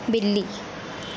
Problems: constant background noise, low volume